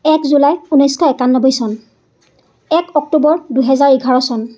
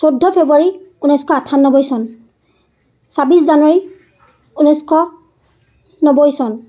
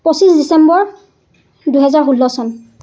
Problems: constant background noise